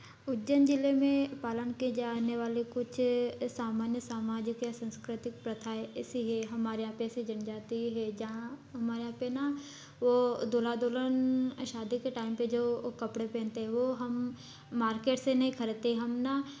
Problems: none marked